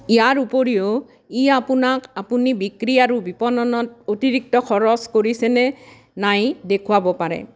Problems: constant background noise